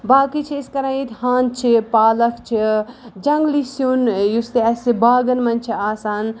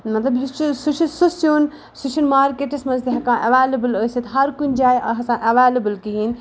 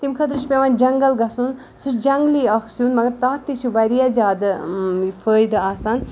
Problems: background sounds at intervals